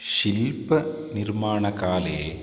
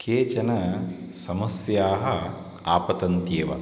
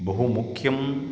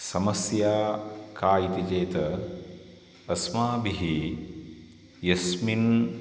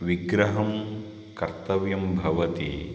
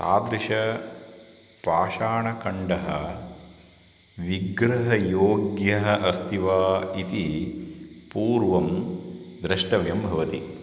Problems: constant background noise